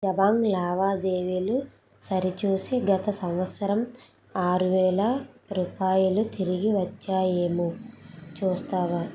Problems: background sounds at intervals